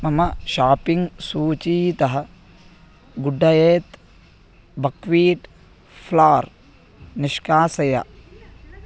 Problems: constant background noise